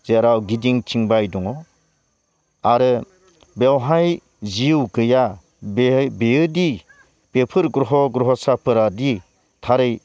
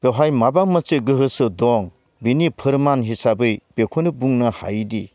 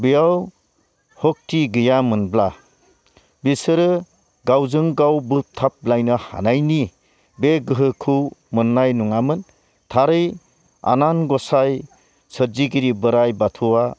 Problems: none marked